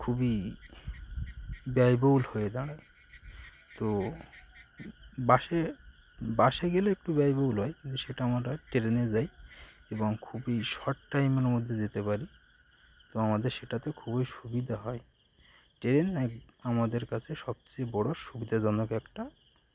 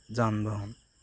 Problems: constant background noise, continuous background conversations